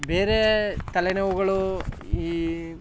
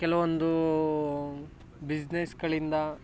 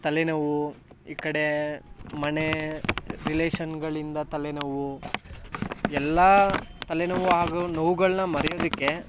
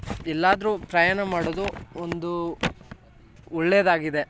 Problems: background sounds at intervals